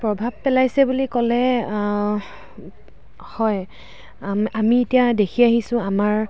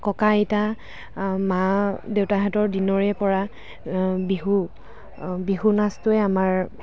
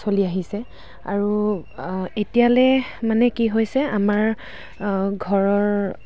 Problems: constant background noise, background conversations at intervals